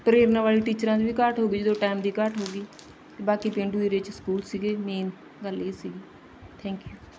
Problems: background sounds at intervals, background conversations at intervals